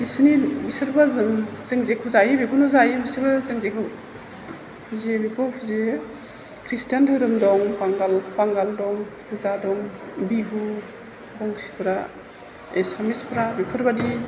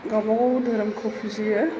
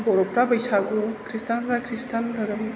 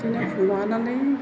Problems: constant background noise, background conversations at intervals